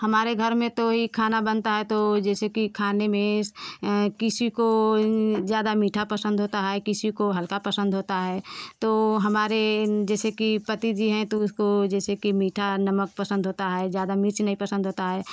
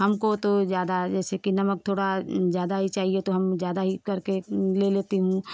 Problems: constant background noise